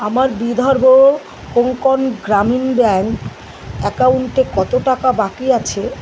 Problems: none marked